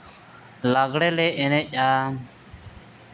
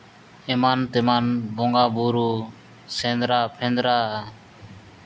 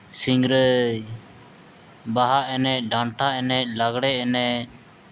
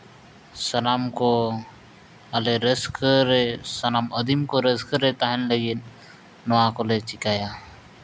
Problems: none marked